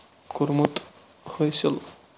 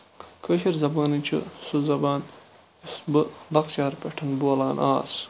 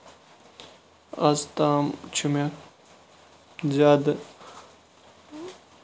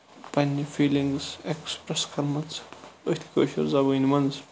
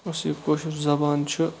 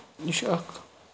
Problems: constant background noise, low volume